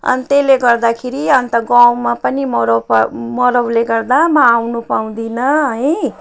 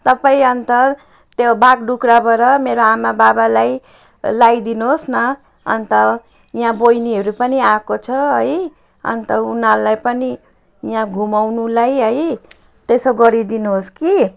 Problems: none marked